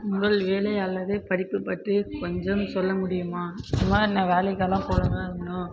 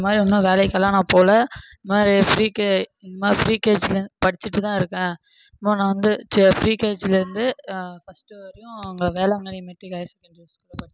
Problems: background sounds at intervals